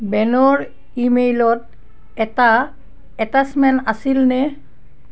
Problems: none marked